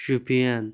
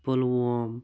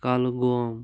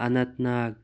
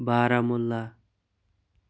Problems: constant background noise